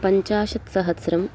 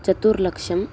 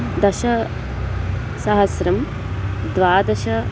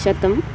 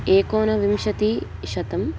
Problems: constant background noise